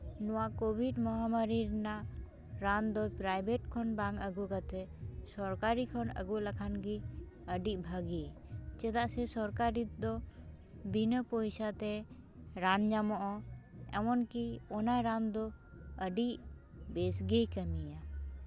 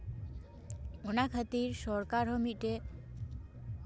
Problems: background conversations at intervals